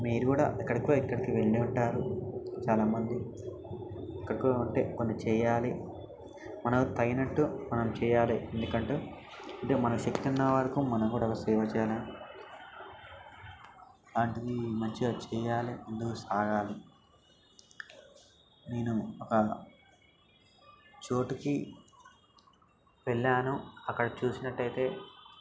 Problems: background sounds at intervals